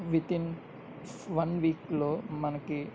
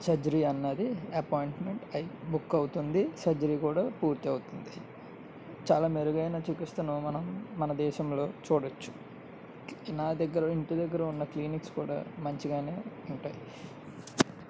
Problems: low volume